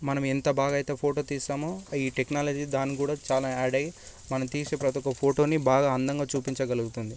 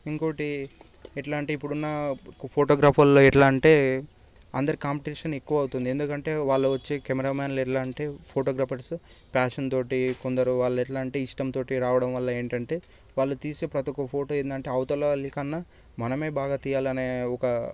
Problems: constant background noise